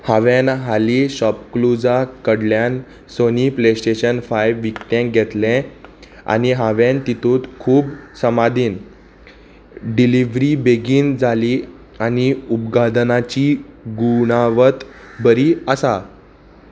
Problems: constant background noise